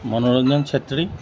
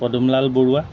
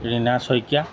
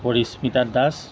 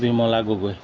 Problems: background sounds at intervals